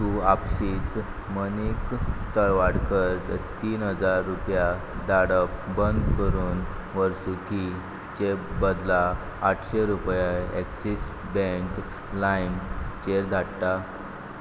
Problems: none marked